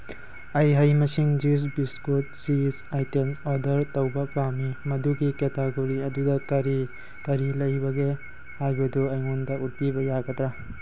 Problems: background sounds at intervals